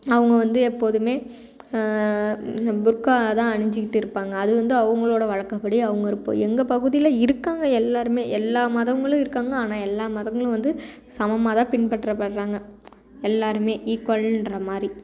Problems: none marked